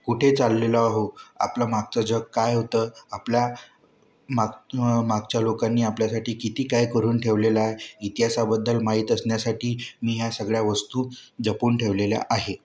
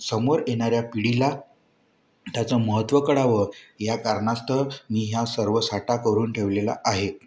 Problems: none marked